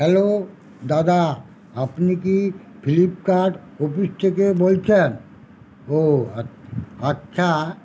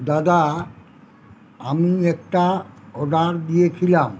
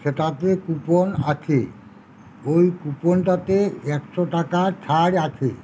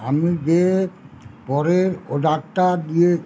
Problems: constant background noise, background conversations at intervals